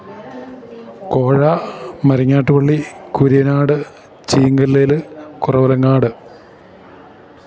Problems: none marked